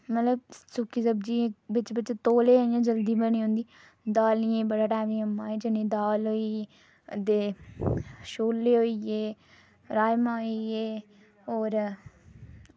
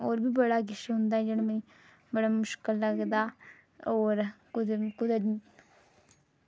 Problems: none marked